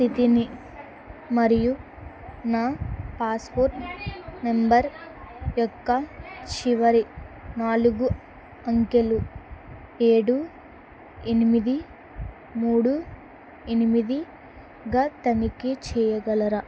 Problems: background conversations at intervals